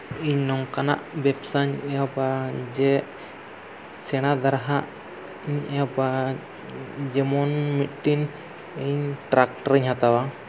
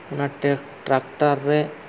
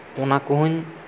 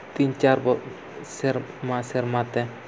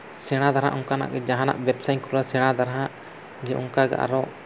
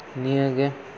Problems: none marked